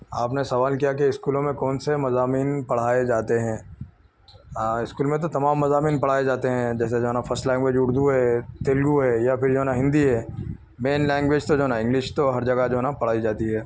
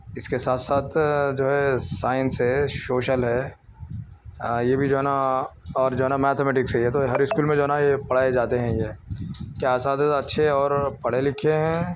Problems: none marked